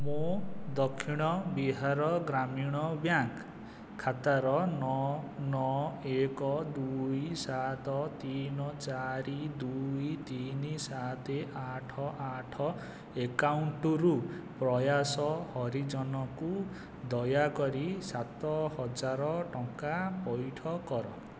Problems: constant background noise